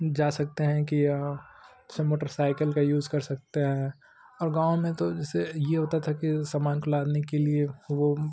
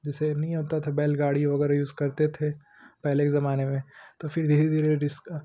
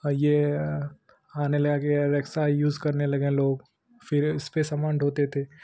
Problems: constant background noise